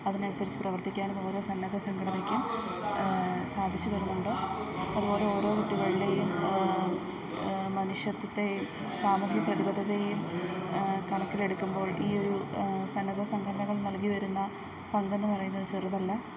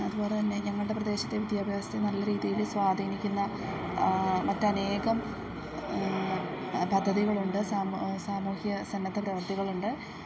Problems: background sounds at intervals, low volume